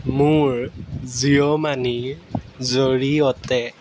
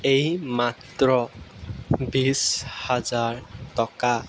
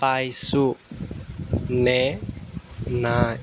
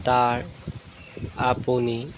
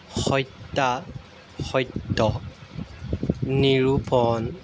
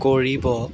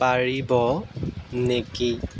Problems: background sounds at intervals